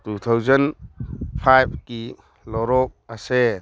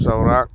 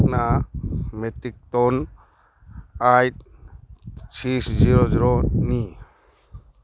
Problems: background sounds at intervals